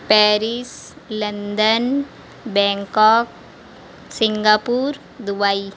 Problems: constant background noise